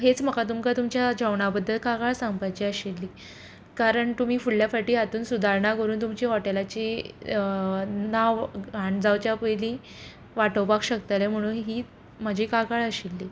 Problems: background conversations at intervals